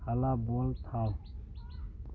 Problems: low volume